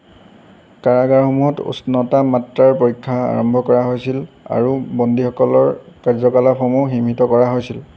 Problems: none marked